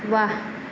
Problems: none marked